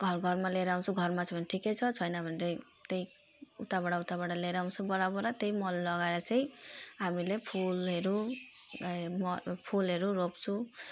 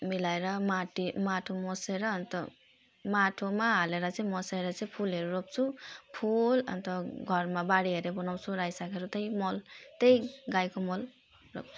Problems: background sounds at intervals